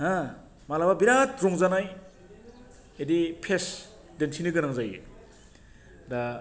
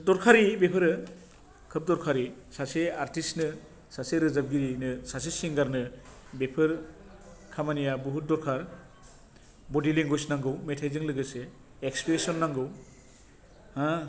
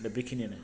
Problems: none marked